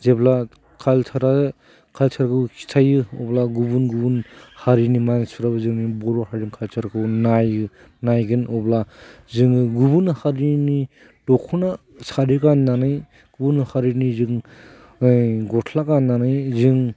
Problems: none marked